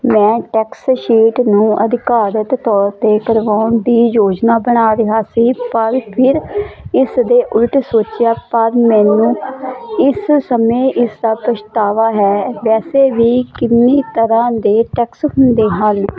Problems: constant background noise